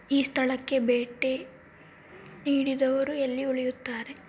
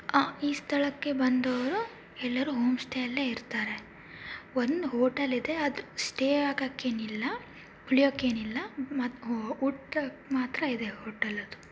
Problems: background sounds at intervals